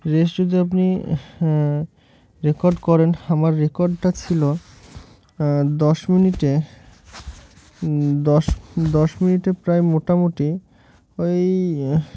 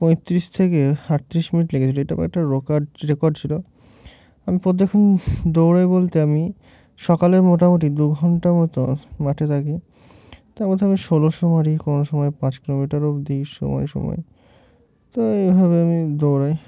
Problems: none marked